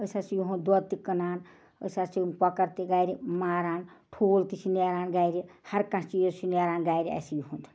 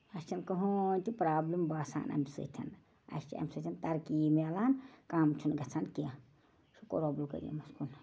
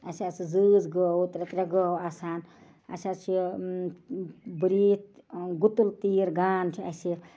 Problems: background sounds at intervals